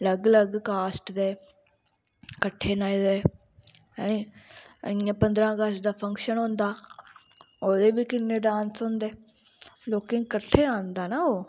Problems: constant background noise